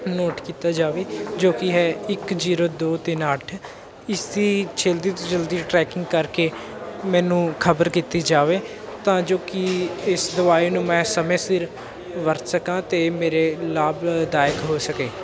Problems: constant background noise, background conversations at intervals